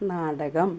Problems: low volume